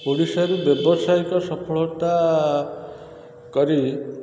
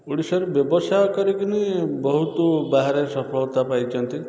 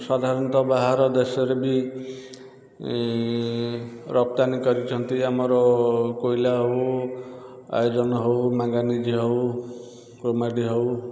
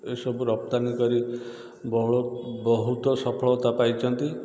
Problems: constant background noise